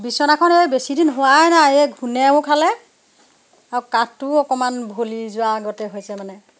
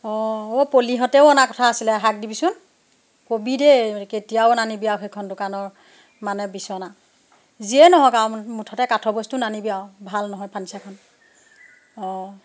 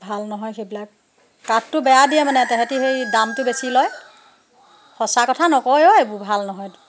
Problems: background sounds at intervals